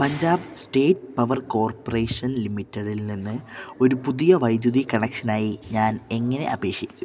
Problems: none marked